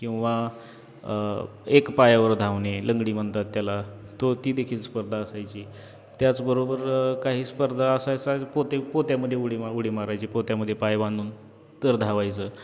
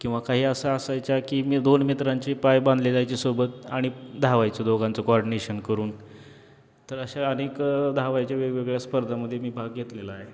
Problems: constant background noise, background conversations at intervals